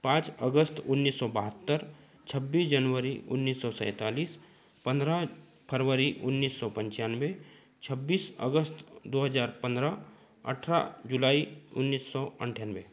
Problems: background sounds at intervals